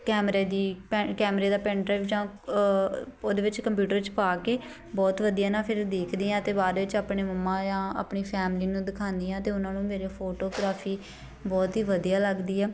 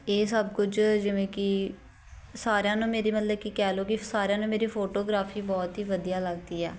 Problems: constant background noise